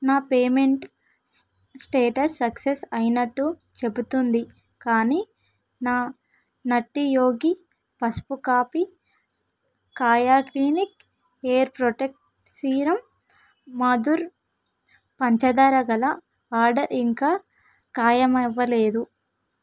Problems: background sounds at intervals